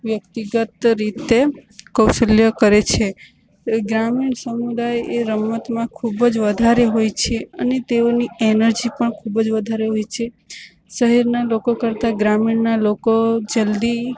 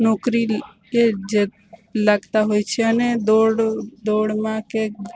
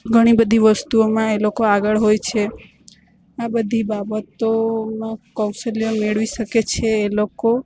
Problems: constant background noise